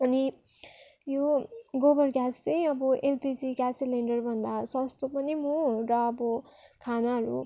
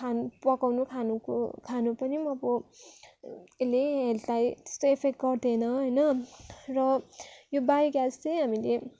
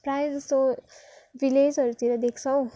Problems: background sounds at intervals